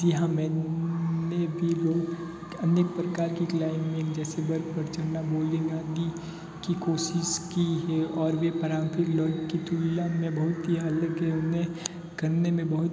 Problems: constant background noise